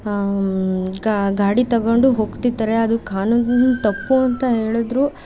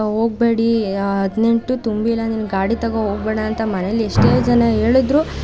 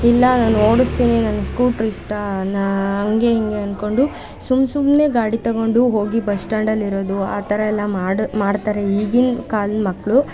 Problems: none marked